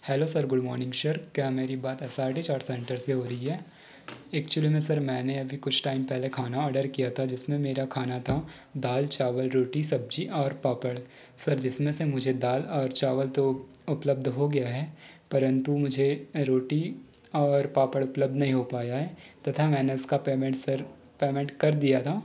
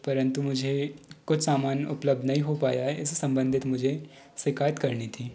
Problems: none marked